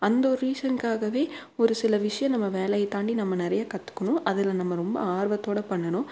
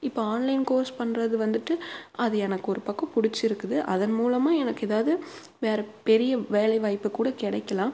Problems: none marked